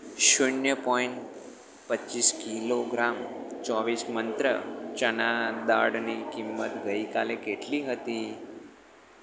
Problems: constant background noise